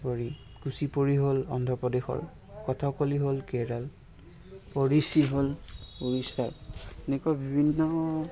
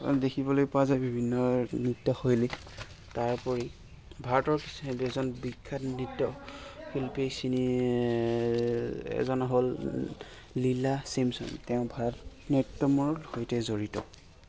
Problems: constant background noise, continuous background conversations